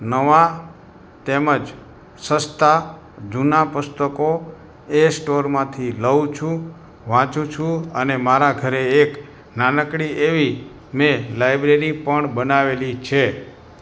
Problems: constant background noise